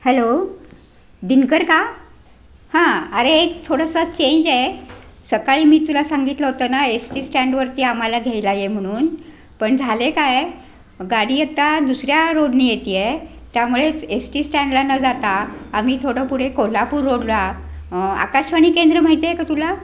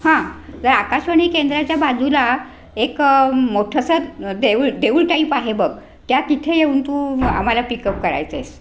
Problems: none marked